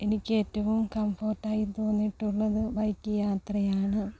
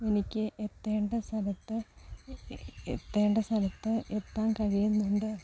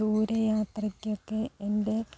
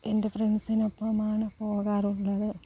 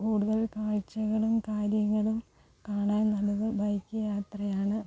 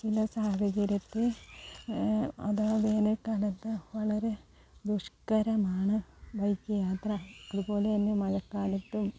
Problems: low volume